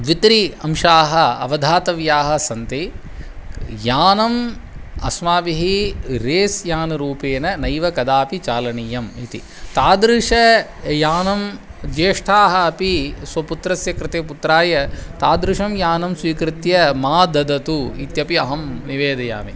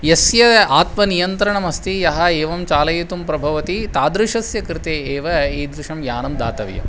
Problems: none marked